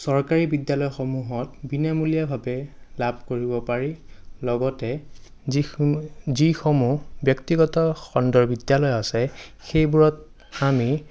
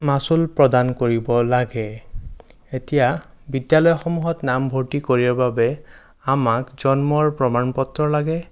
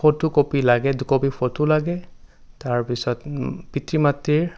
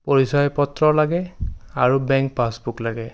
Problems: none marked